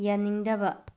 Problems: low volume